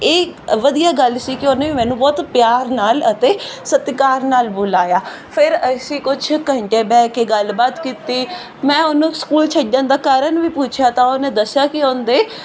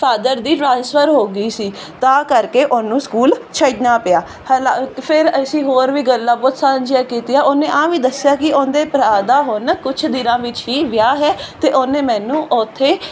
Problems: none marked